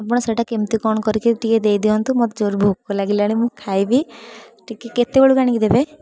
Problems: background sounds at intervals, background conversations at intervals